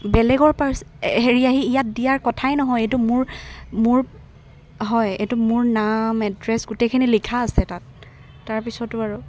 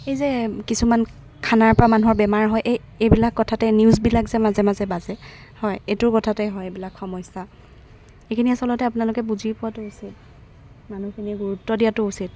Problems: background sounds at intervals